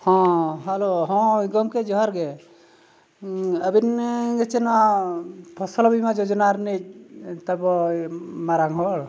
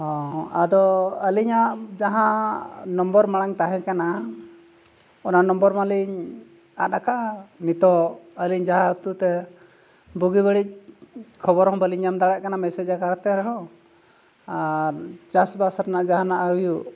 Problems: none marked